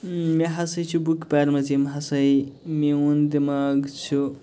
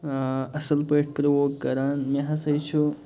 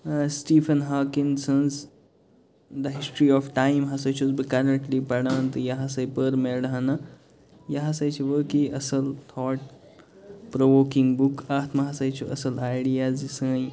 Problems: constant background noise